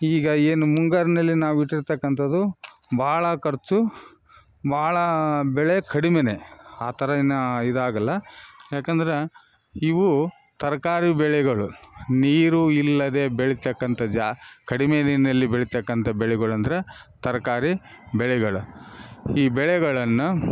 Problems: none marked